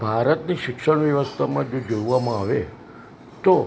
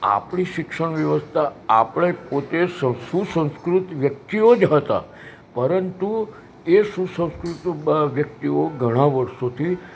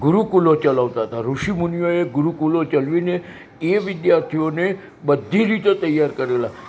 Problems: none marked